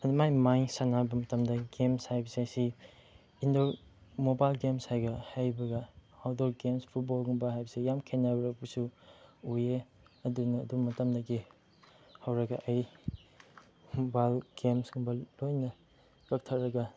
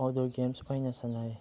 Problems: background sounds at intervals, background conversations at intervals